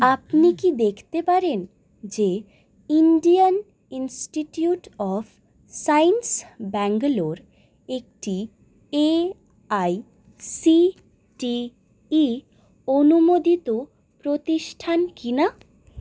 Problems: none marked